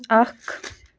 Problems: none marked